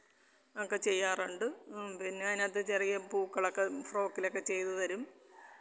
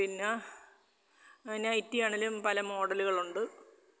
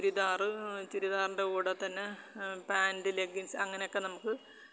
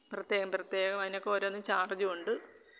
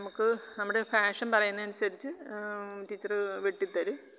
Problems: background sounds at intervals